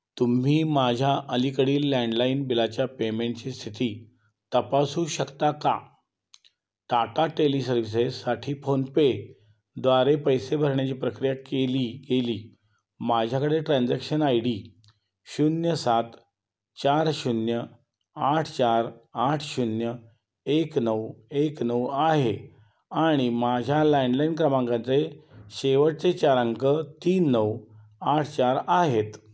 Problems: constant background noise